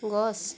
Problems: none marked